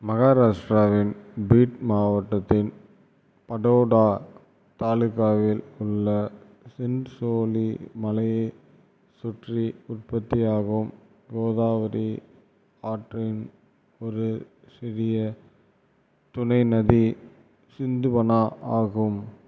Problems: none marked